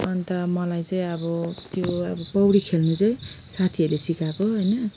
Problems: background sounds at intervals